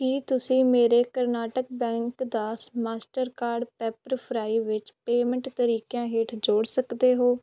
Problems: background sounds at intervals